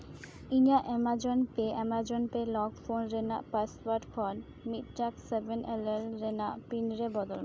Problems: none marked